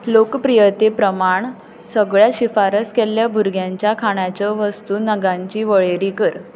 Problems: background conversations at intervals